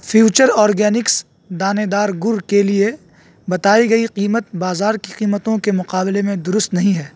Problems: constant background noise